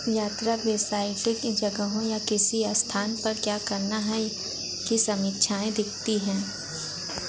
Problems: constant background noise, background conversations at intervals